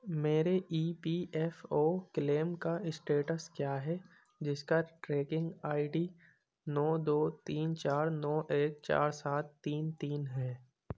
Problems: none marked